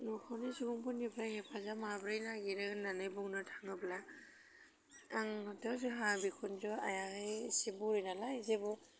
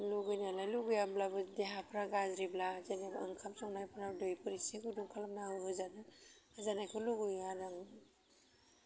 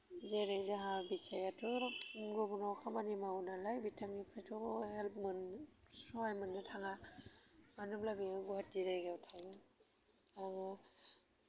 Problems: constant background noise